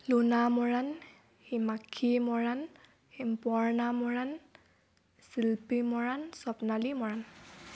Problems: background sounds at intervals